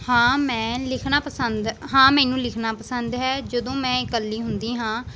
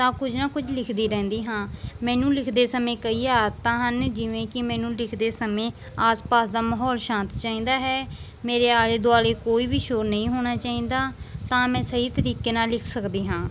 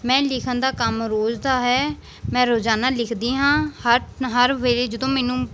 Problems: background sounds at intervals